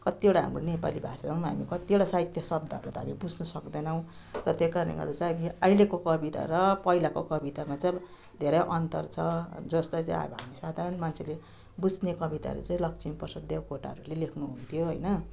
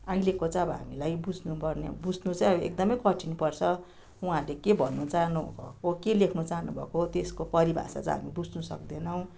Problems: none marked